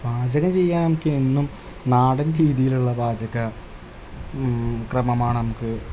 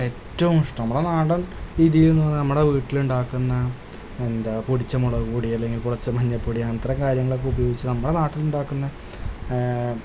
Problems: constant background noise